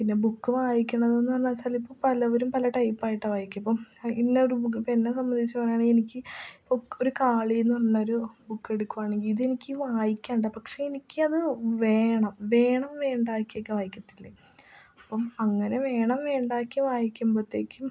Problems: low volume